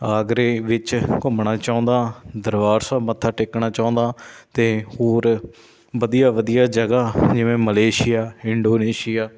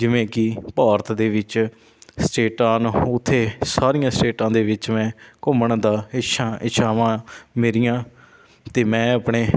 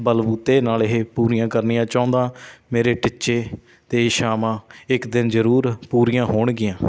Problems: background sounds at intervals